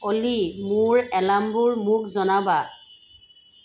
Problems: constant background noise